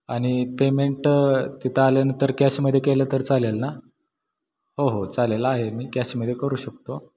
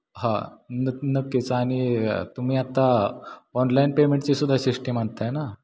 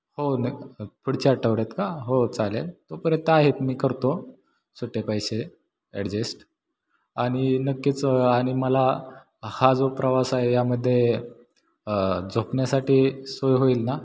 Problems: background sounds at intervals, echo